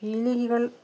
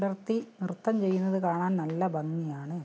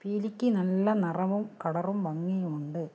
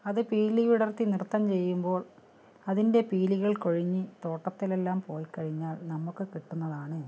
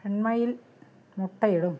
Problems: none marked